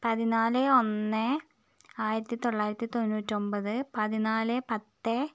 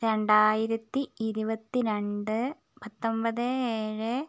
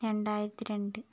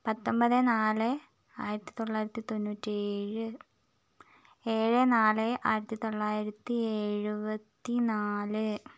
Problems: none marked